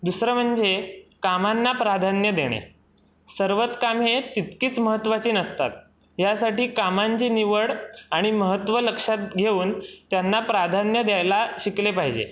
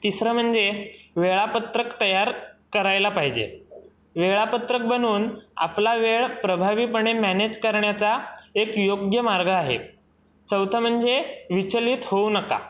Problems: none marked